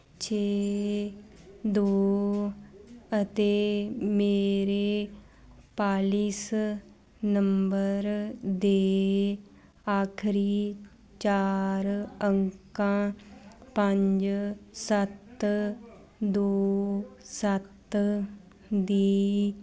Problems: constant background noise